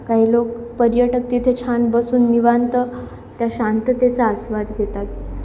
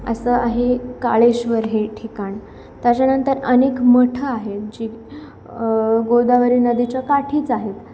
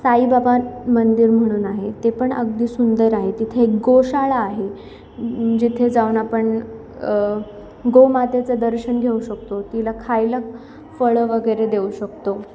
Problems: none marked